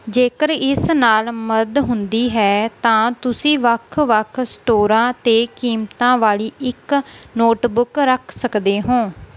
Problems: none marked